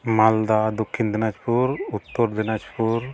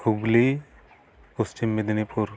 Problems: background sounds at intervals